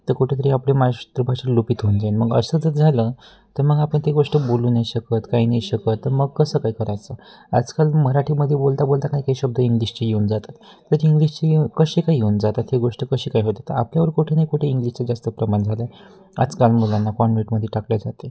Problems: constant background noise, background conversations at intervals